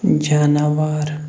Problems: constant background noise